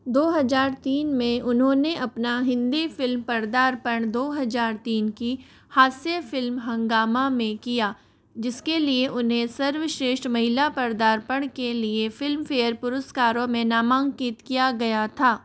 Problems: none marked